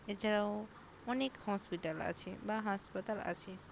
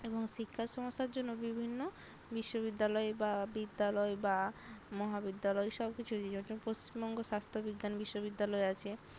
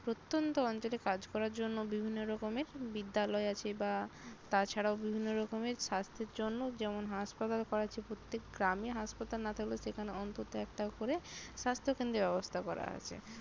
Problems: none marked